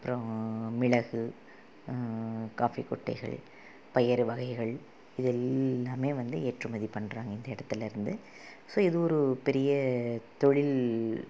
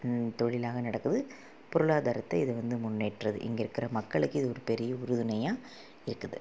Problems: low volume